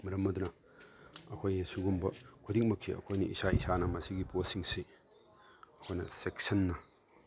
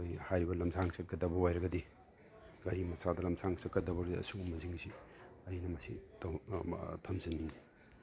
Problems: none marked